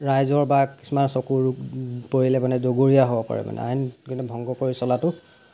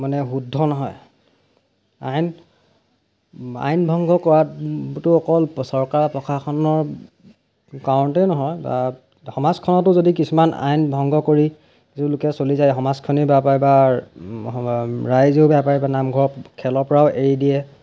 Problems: background sounds at intervals